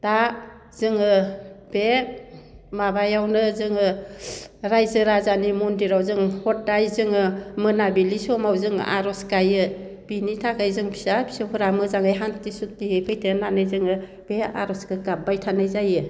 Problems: none marked